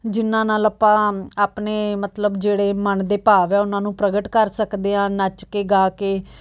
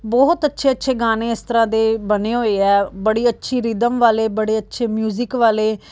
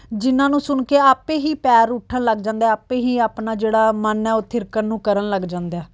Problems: background sounds at intervals